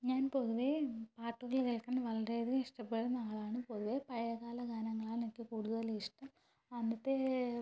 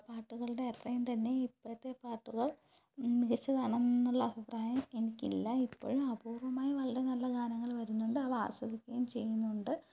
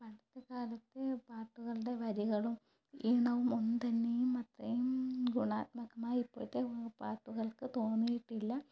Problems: low volume